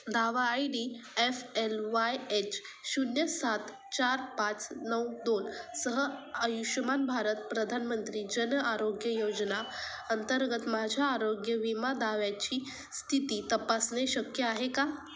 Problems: constant background noise